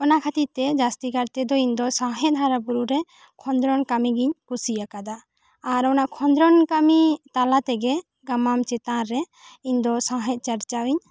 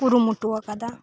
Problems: none marked